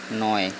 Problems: constant background noise